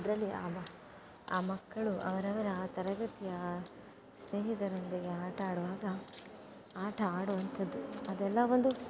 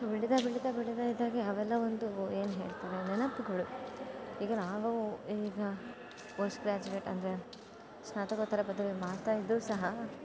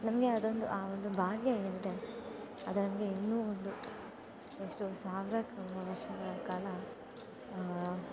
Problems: none marked